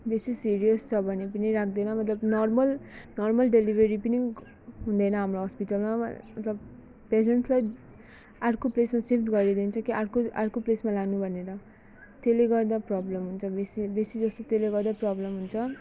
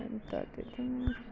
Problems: background sounds at intervals